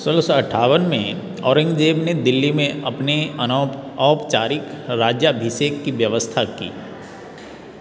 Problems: constant background noise